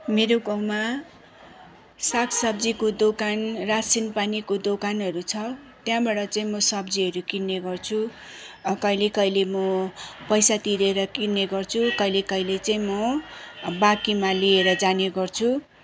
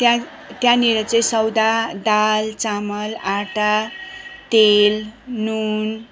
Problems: none marked